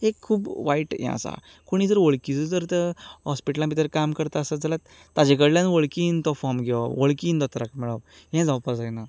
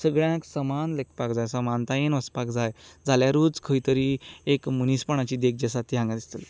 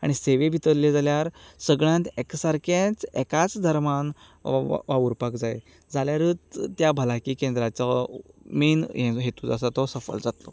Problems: background sounds at intervals